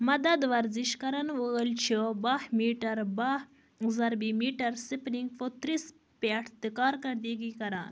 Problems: background sounds at intervals